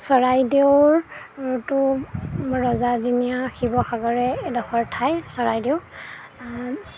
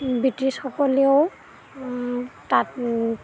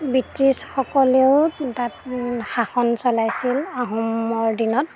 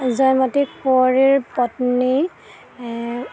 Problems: constant background noise